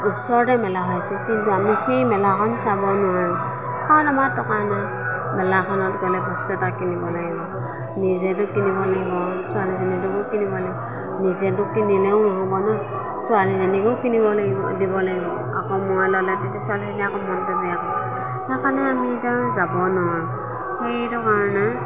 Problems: none marked